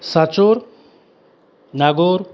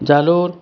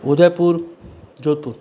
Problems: constant background noise